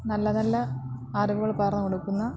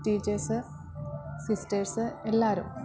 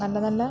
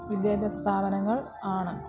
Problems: low volume